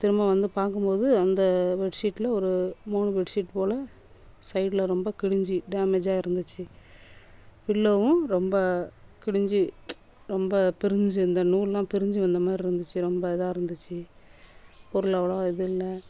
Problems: background sounds at intervals